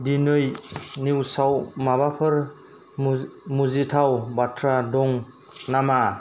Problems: none marked